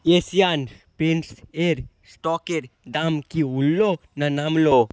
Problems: none marked